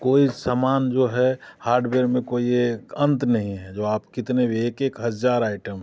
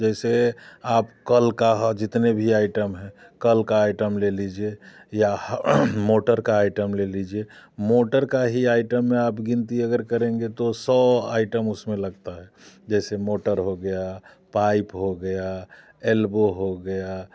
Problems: background sounds at intervals